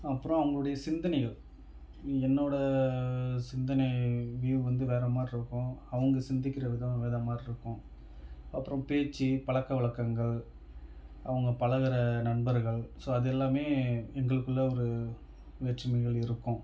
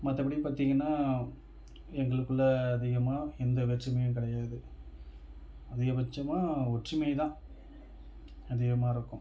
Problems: none marked